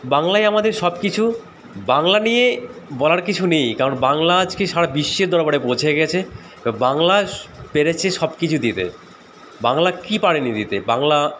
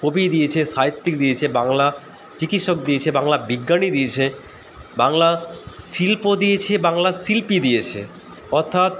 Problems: none marked